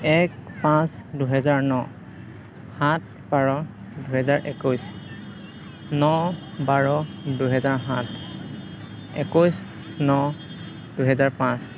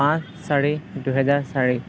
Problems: constant background noise, continuous background conversations